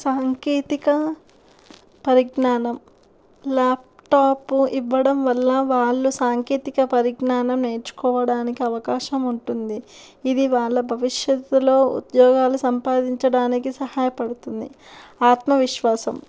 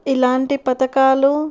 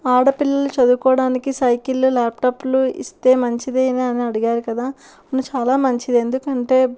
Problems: background sounds at intervals